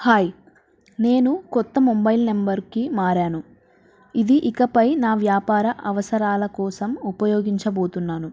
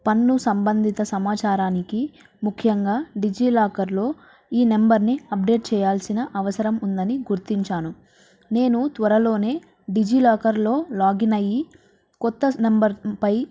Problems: background sounds at intervals